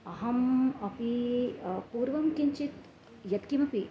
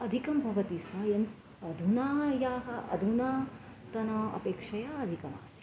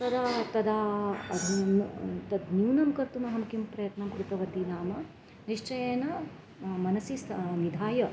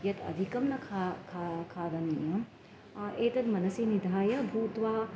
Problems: constant background noise, continuous background conversations